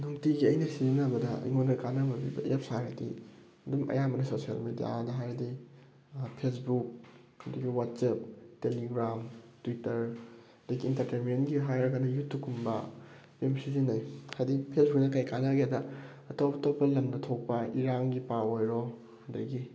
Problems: background sounds at intervals